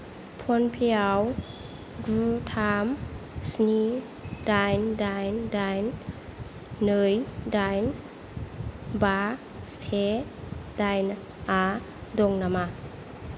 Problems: constant background noise